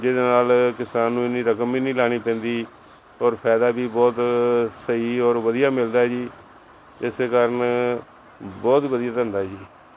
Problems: none marked